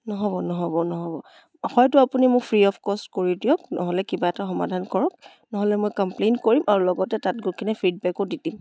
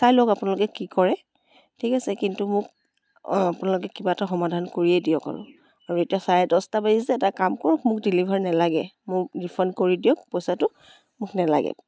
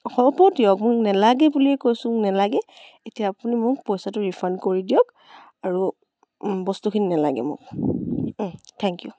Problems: none marked